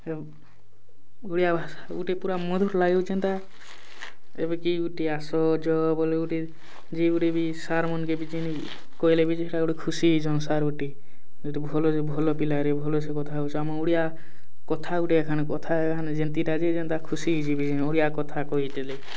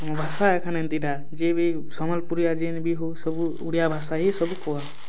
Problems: background sounds at intervals